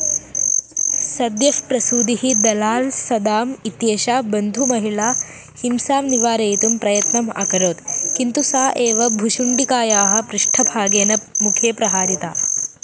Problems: constant background noise